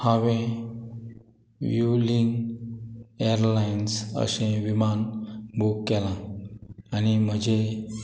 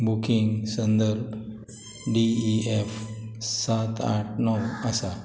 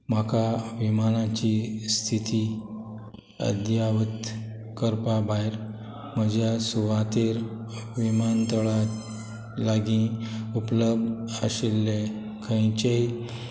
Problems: none marked